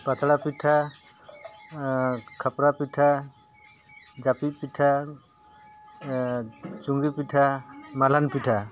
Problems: constant background noise